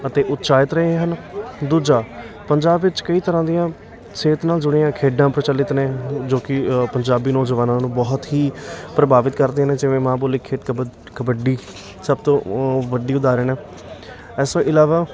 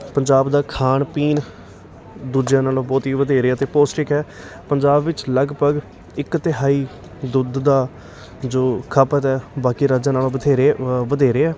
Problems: none marked